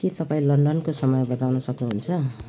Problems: none marked